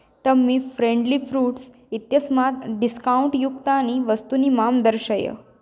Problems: none marked